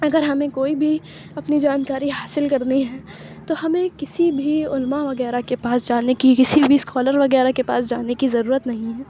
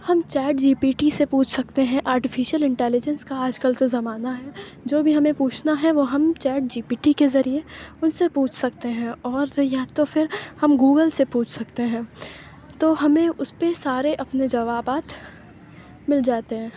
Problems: background sounds at intervals